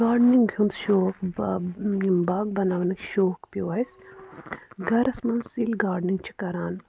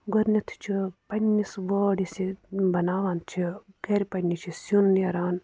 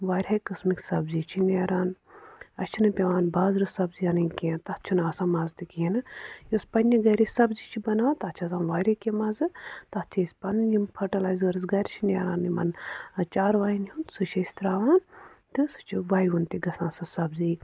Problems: none marked